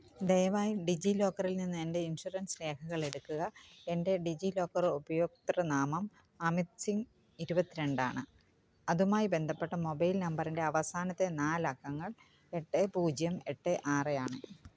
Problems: background sounds at intervals